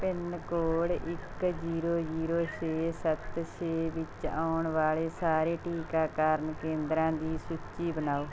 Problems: constant background noise